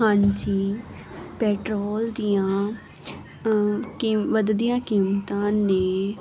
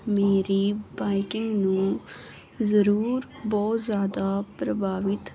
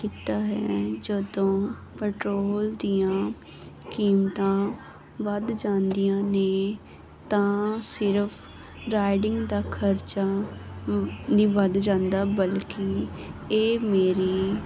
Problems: background sounds at intervals